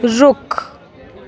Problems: continuous background conversations